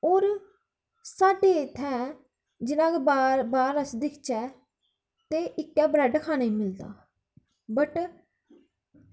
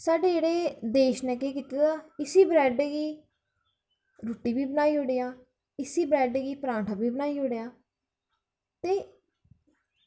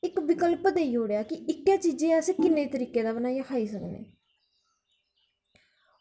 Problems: none marked